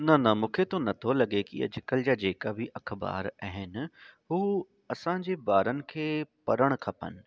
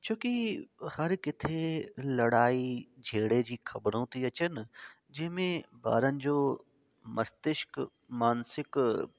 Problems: constant background noise